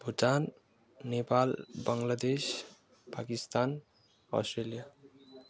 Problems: background sounds at intervals